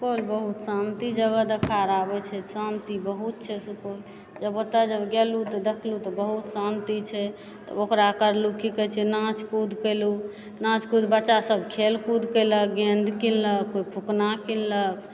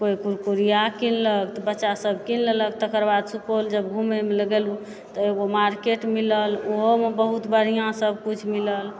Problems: background sounds at intervals